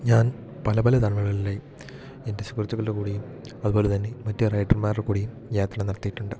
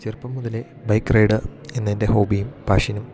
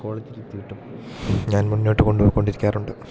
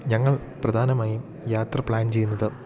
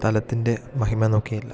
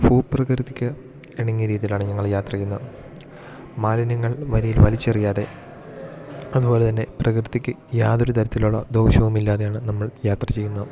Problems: none marked